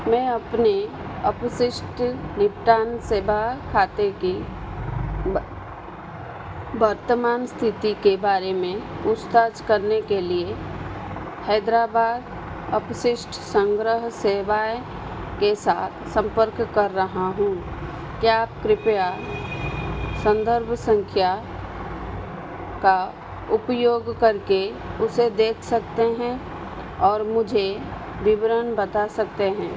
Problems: background sounds at intervals